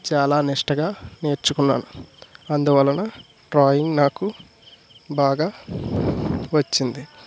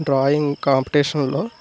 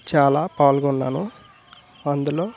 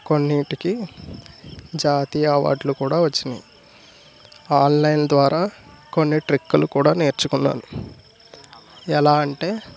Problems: none marked